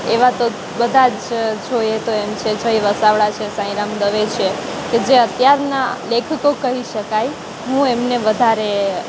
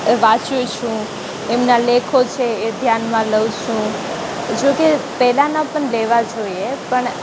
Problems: constant background noise